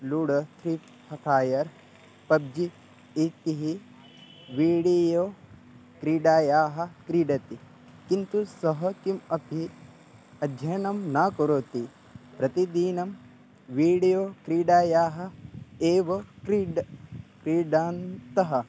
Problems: background sounds at intervals